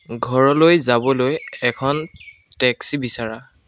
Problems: background sounds at intervals